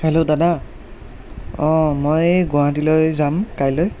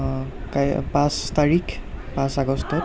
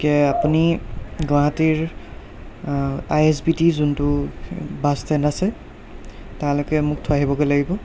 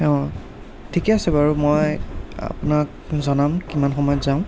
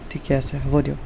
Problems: none marked